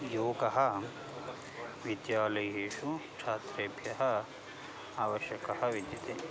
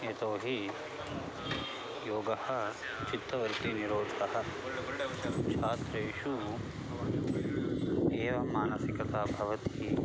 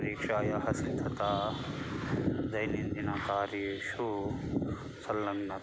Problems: background sounds at intervals, background conversations at intervals